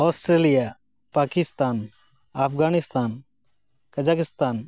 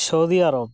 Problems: none marked